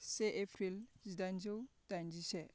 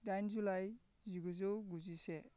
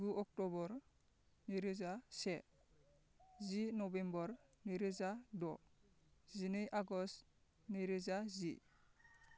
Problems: constant background noise